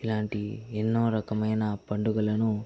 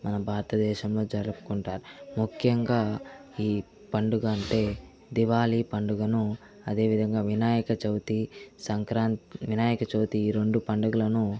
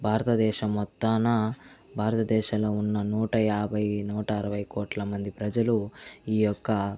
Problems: none marked